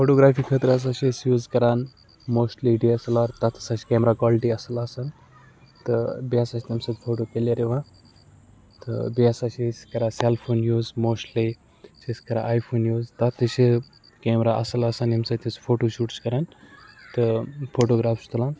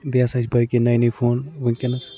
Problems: background sounds at intervals, background conversations at intervals